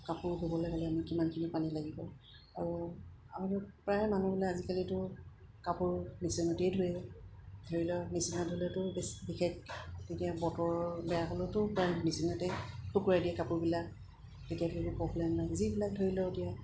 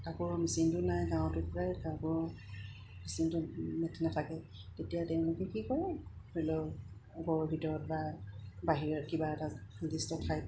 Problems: background sounds at intervals